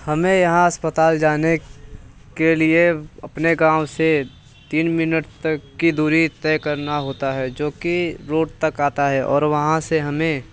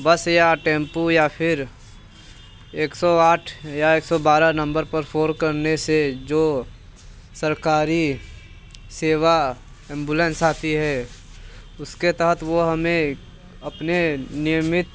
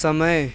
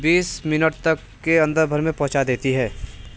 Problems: none marked